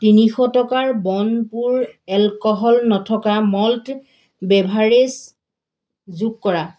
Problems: constant background noise